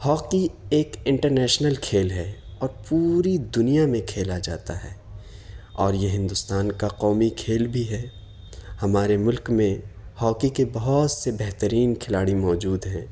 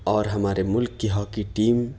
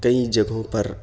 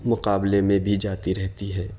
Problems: constant background noise